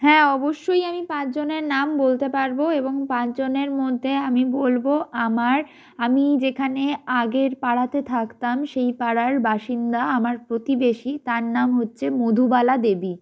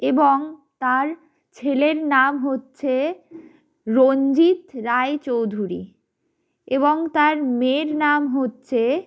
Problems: none marked